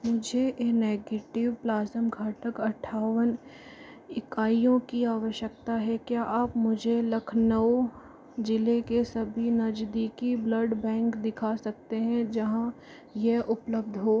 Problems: constant background noise, low volume